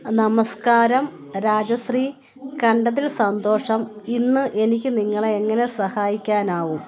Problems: constant background noise